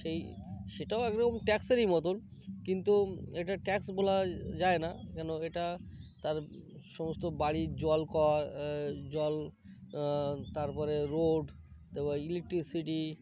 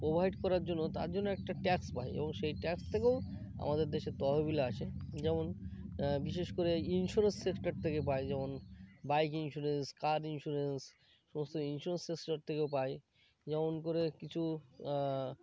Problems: constant background noise, background conversations at intervals